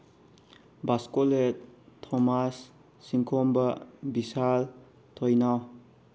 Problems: none marked